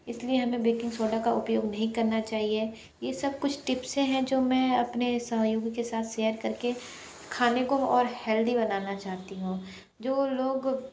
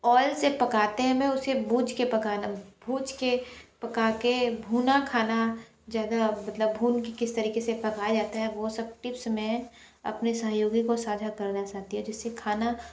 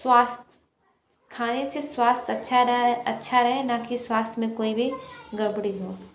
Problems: background conversations at intervals